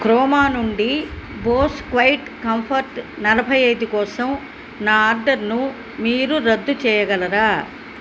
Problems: background sounds at intervals